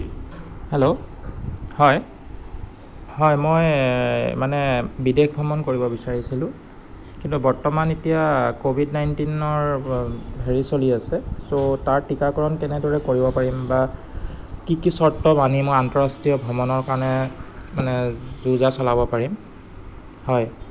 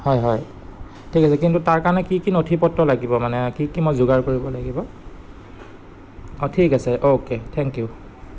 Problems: none marked